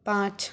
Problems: background sounds at intervals